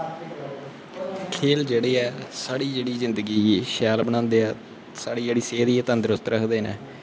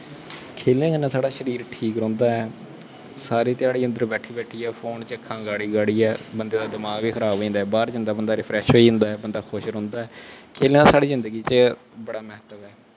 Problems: constant background noise